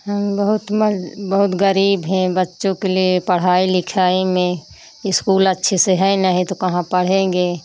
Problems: constant background noise